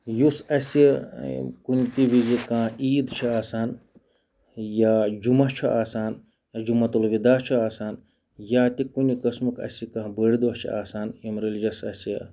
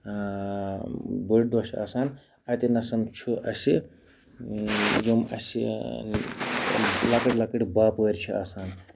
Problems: background sounds at intervals